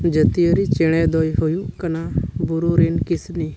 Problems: background sounds at intervals